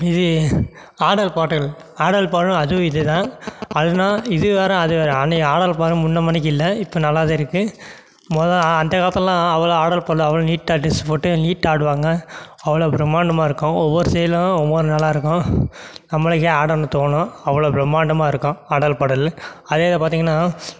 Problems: none marked